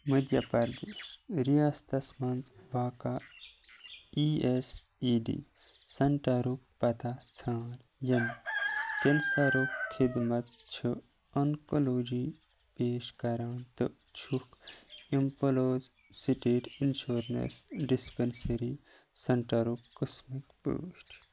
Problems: background sounds at intervals